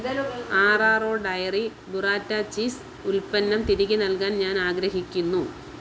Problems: constant background noise, background conversations at intervals